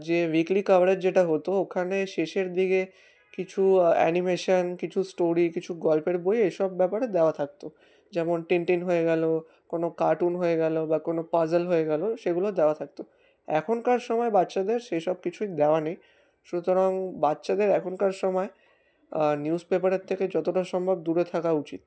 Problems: background sounds at intervals